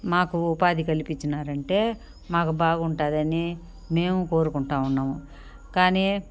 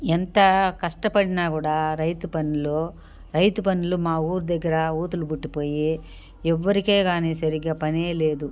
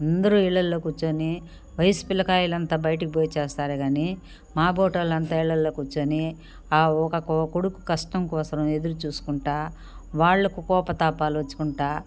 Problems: background sounds at intervals